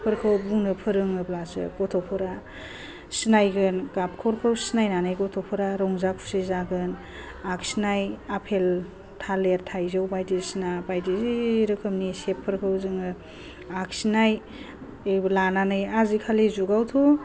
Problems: low volume